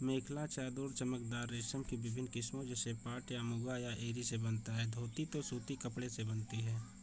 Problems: constant background noise